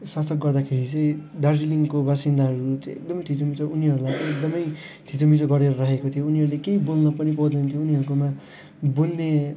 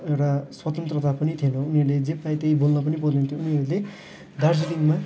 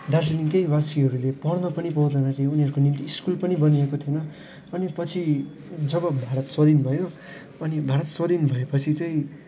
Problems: constant background noise, background conversations at intervals